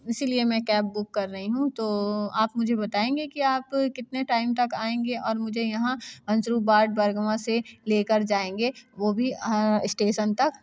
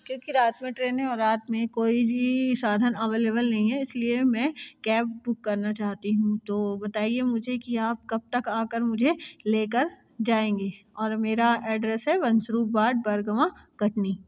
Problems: constant background noise